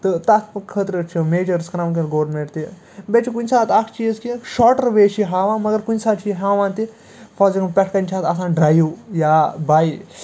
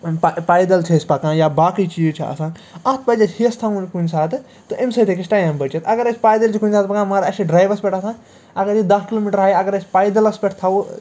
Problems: none marked